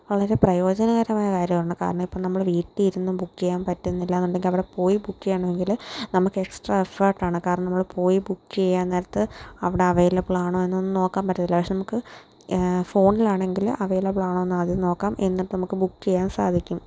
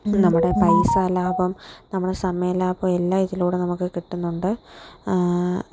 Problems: none marked